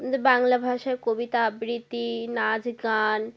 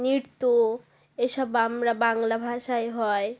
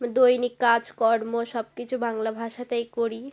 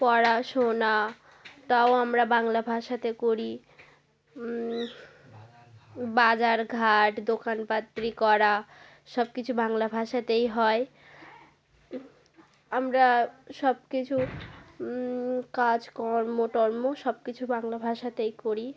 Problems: continuous background conversations